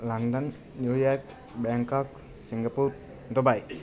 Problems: constant background noise